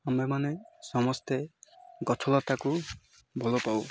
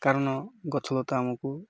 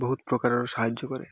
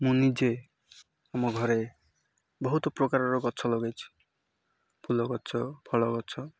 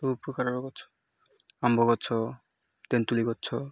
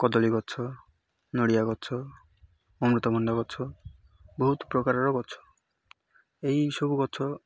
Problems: none marked